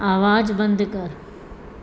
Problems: constant background noise, echo